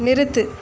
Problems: constant background noise